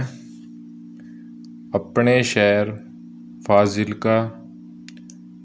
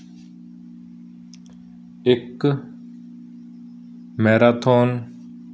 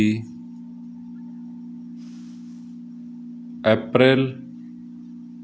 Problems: background sounds at intervals